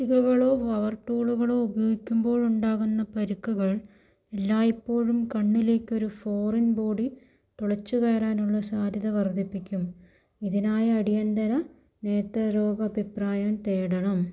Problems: low volume